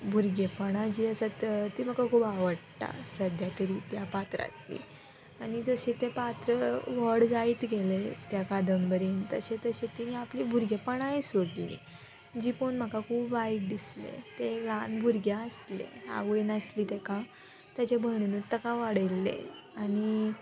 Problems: background sounds at intervals